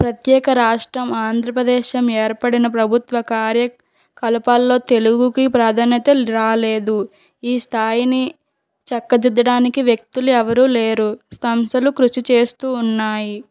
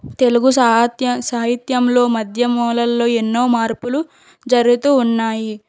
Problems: background sounds at intervals